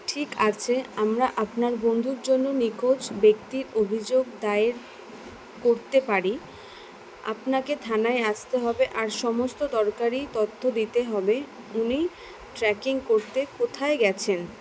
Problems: constant background noise